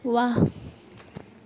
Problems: constant background noise